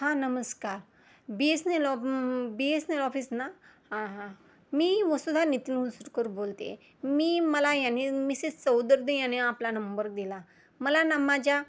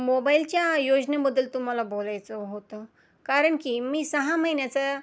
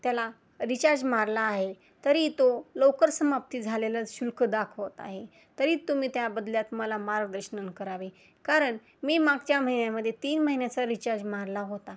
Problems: constant background noise, low volume